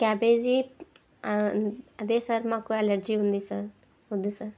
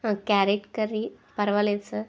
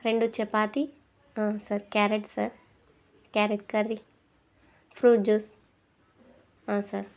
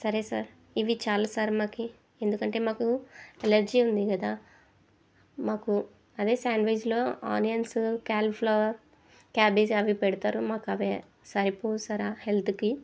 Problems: none marked